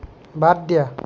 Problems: none marked